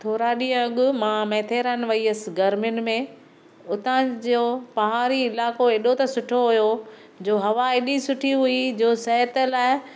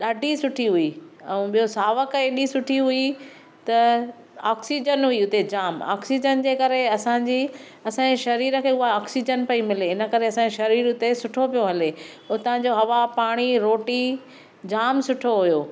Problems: none marked